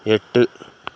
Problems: none marked